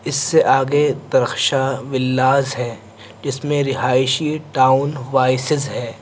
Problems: constant background noise